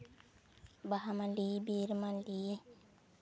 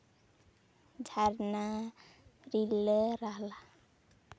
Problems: none marked